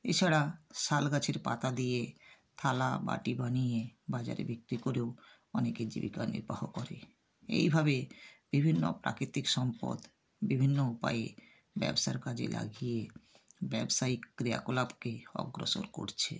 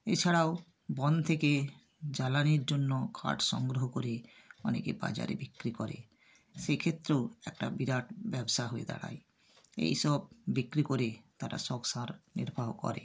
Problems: background sounds at intervals